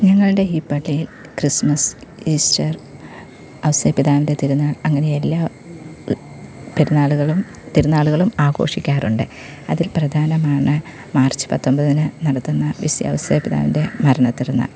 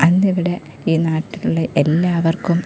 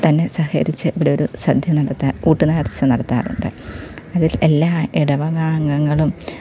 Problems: none marked